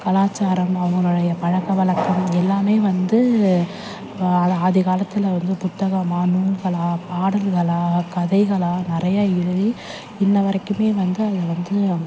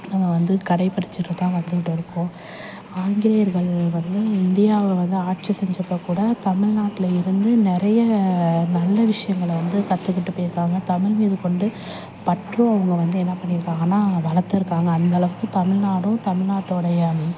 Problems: constant background noise, background conversations at intervals